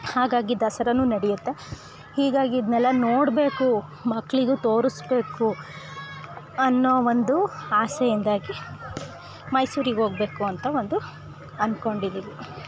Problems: background sounds at intervals